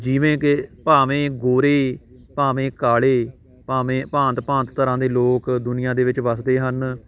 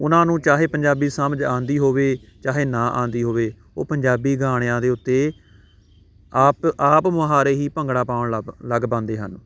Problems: constant background noise, background conversations at intervals